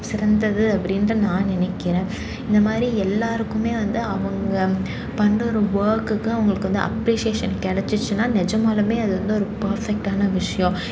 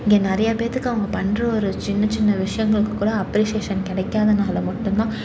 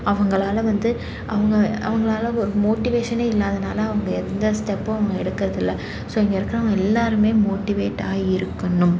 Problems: constant background noise